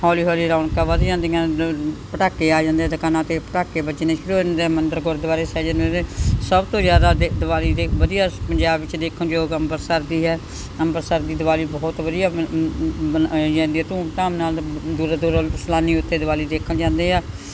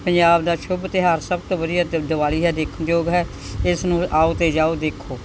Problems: background sounds at intervals